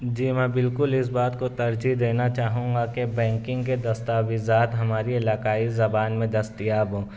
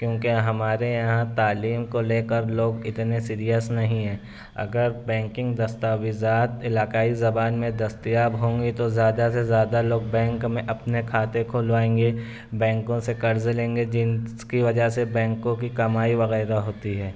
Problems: constant background noise